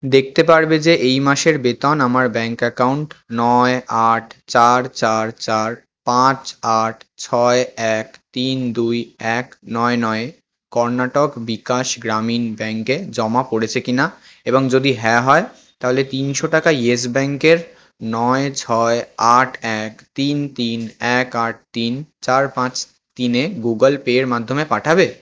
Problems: constant background noise